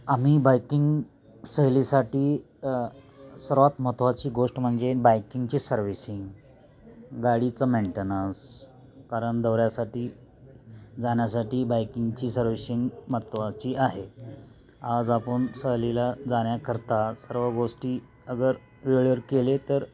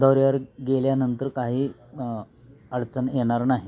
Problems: constant background noise, continuous background conversations